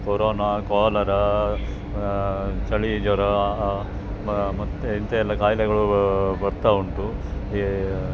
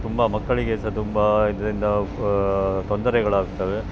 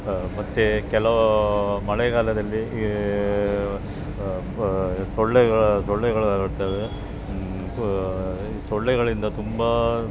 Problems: none marked